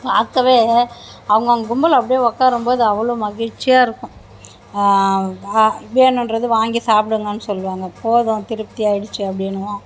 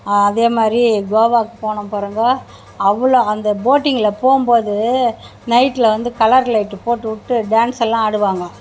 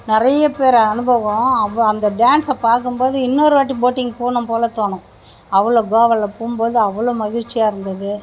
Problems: constant background noise